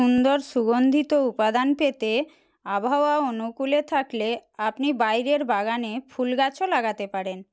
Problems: none marked